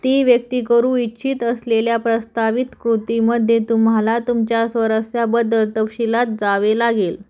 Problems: background sounds at intervals